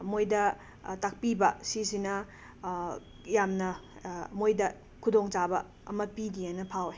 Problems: constant background noise